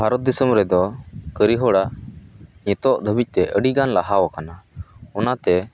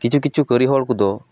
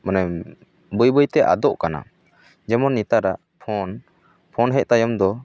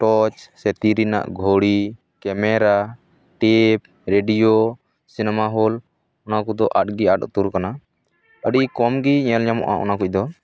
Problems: none marked